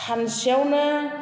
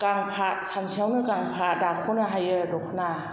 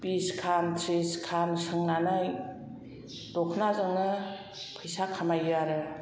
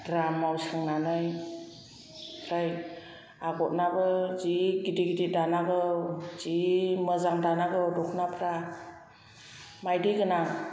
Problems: none marked